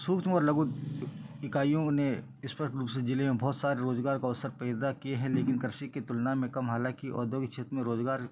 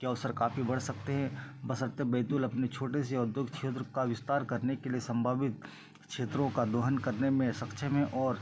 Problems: background sounds at intervals